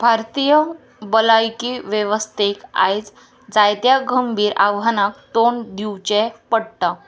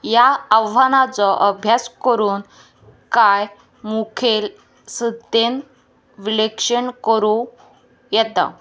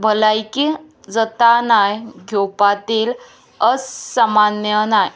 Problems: constant background noise